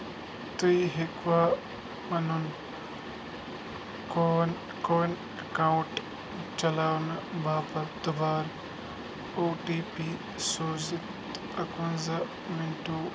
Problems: constant background noise